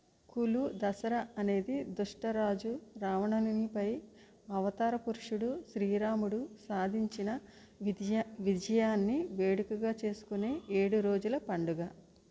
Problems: low volume